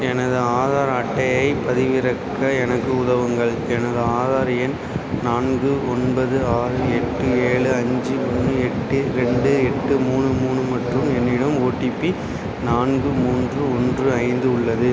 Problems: constant background noise